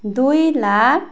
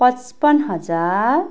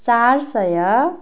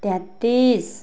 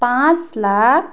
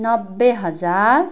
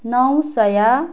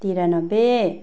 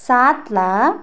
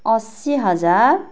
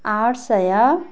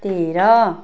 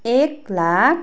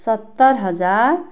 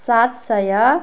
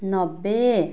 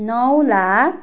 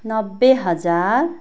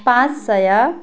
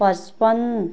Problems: continuous background conversations